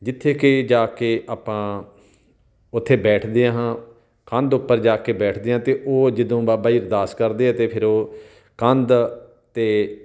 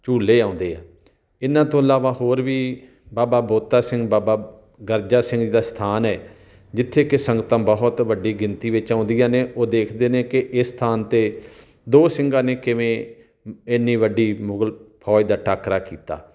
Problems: background sounds at intervals